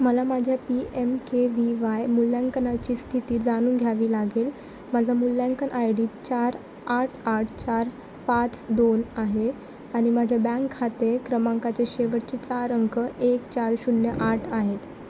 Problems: constant background noise